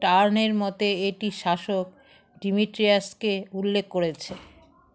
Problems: constant background noise, continuous background conversations